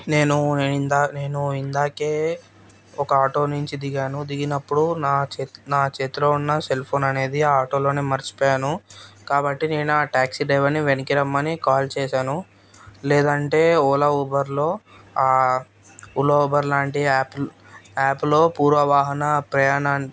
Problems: constant background noise